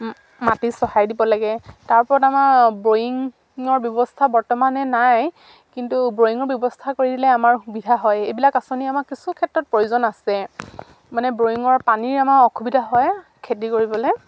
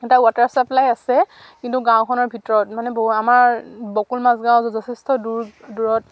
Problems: none marked